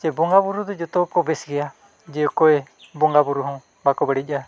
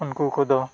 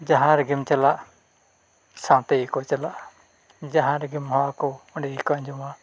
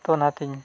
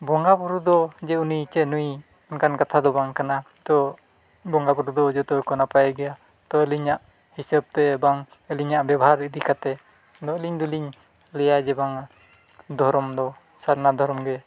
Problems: none marked